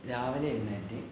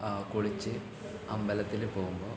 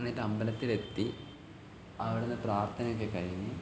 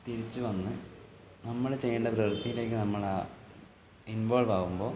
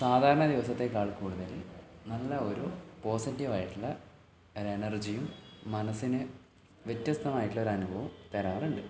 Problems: low volume